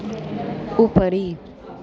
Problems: constant background noise